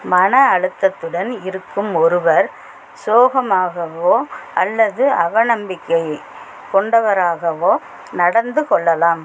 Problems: constant background noise